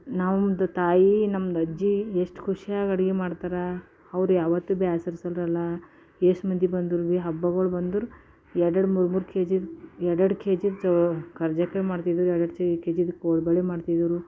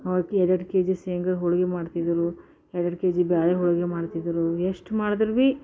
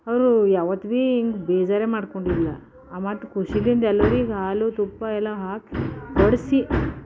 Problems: background sounds at intervals